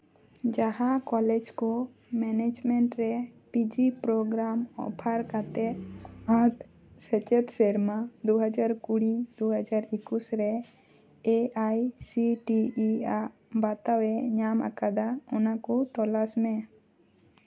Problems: none marked